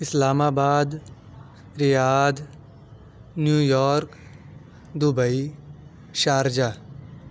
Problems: none marked